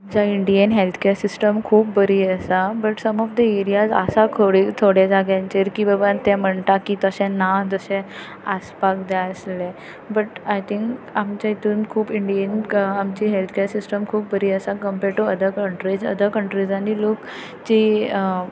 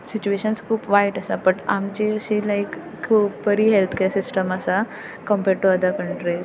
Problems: background sounds at intervals